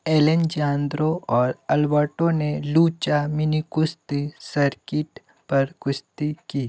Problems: none marked